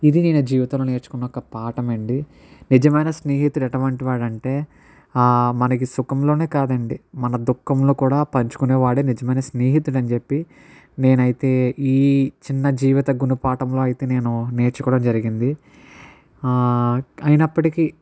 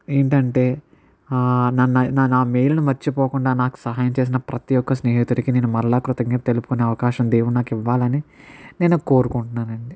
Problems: none marked